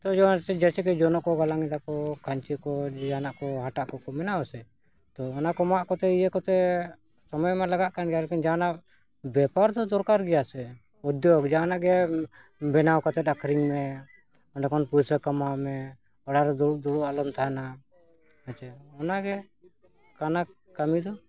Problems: background sounds at intervals